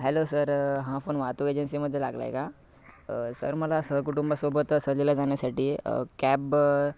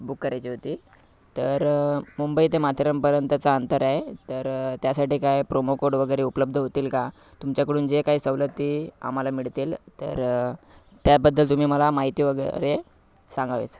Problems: background sounds at intervals, background conversations at intervals